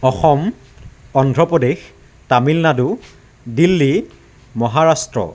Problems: none marked